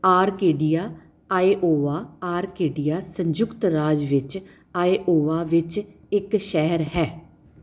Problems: background sounds at intervals